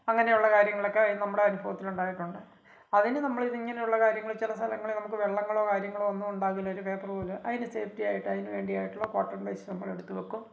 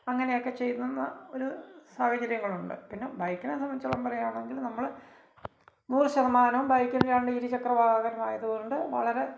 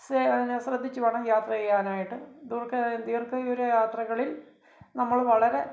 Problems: none marked